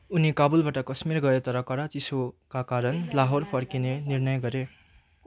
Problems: constant background noise, continuous background conversations